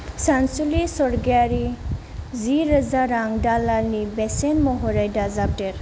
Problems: low volume